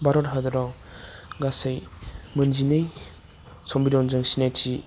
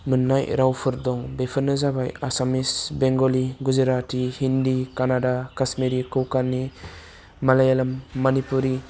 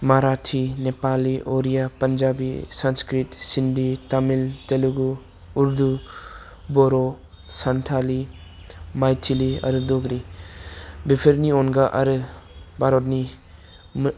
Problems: none marked